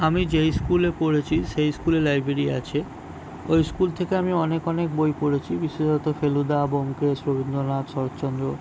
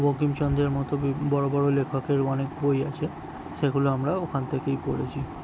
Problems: background sounds at intervals